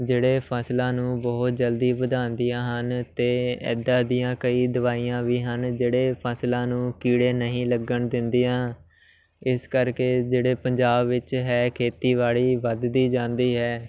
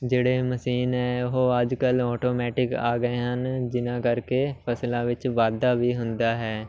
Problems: constant background noise, continuous background conversations